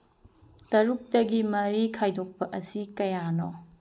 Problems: low volume